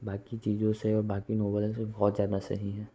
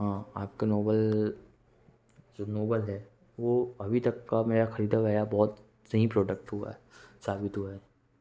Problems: none marked